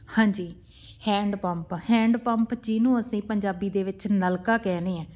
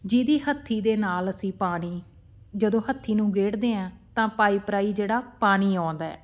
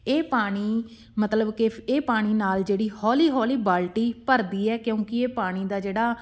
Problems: background sounds at intervals